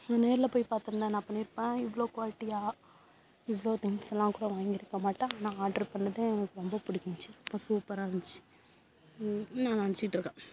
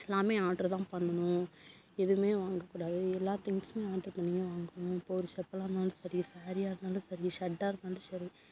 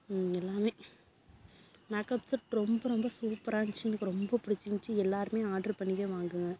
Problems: constant background noise